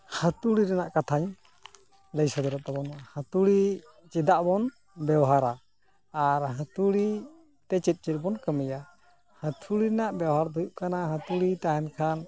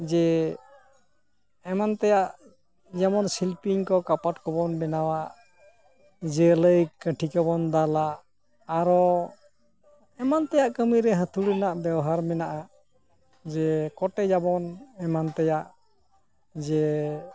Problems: constant background noise